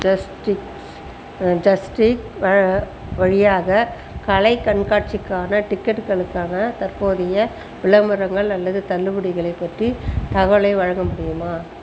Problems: constant background noise